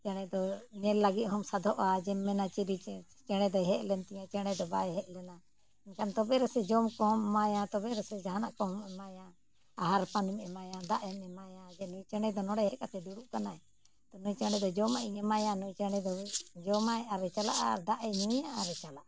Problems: background sounds at intervals